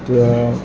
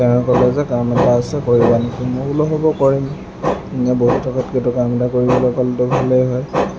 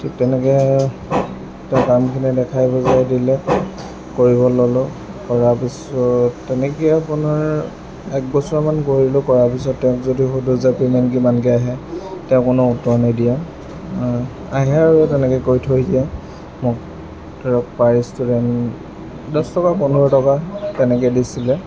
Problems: constant background noise